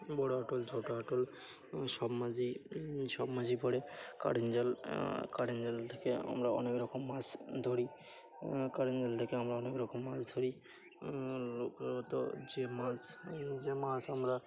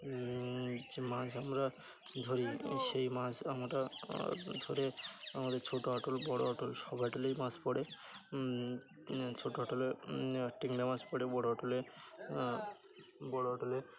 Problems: constant background noise, continuous background conversations